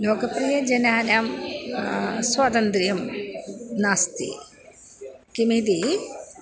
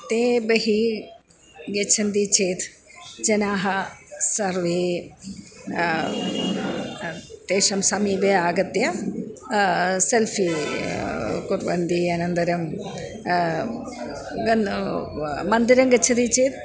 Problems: none marked